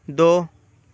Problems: constant background noise